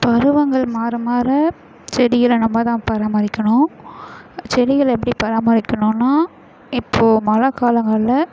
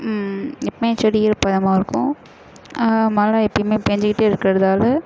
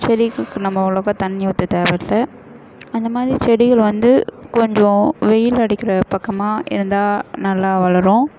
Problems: constant background noise, echo